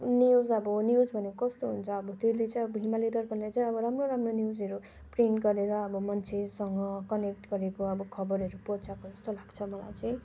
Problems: constant background noise